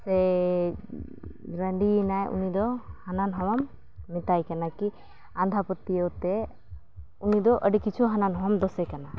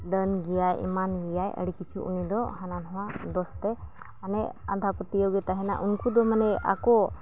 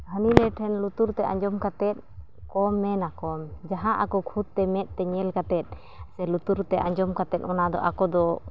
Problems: none marked